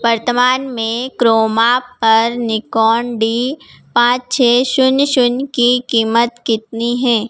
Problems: background sounds at intervals